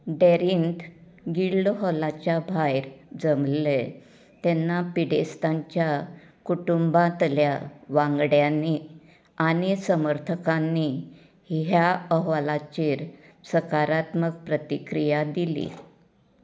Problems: none marked